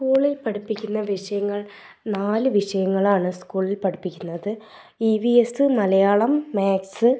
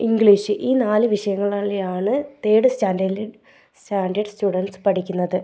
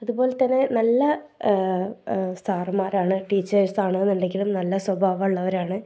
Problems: background sounds at intervals